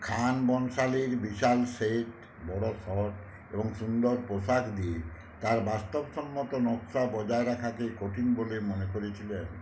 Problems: none marked